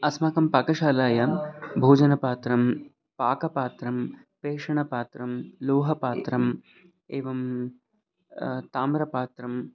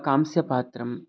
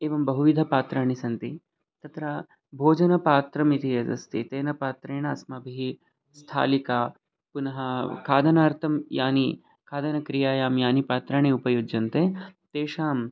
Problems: background sounds at intervals